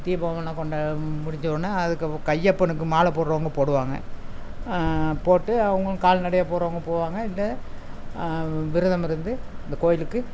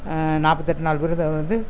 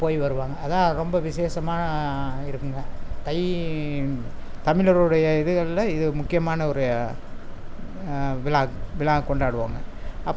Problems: constant background noise